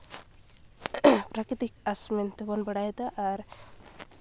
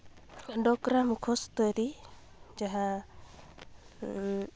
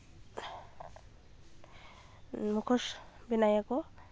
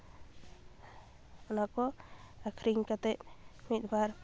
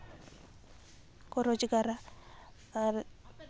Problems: background sounds at intervals